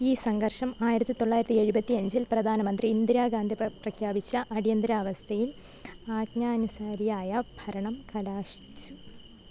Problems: low volume